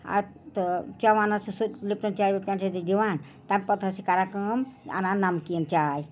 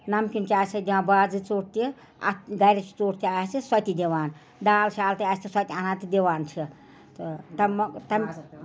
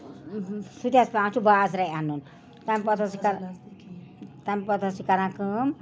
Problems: background sounds at intervals, background conversations at intervals